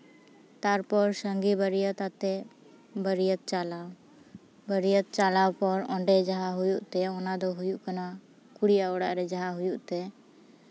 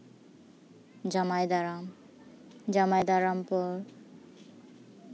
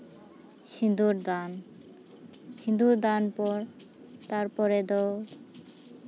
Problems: constant background noise, background conversations at intervals